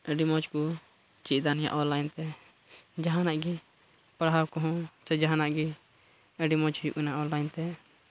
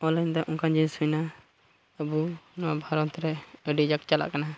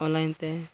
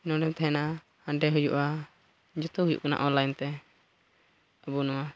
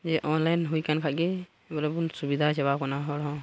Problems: background sounds at intervals, low volume